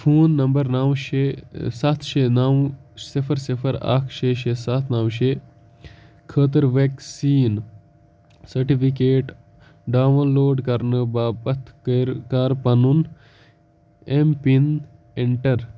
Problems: none marked